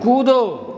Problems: constant background noise, echo